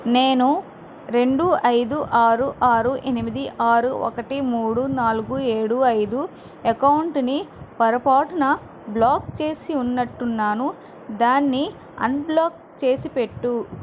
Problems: constant background noise